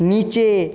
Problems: none marked